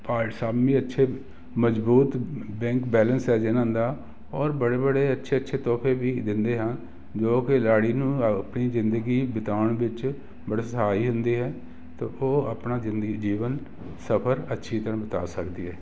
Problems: constant background noise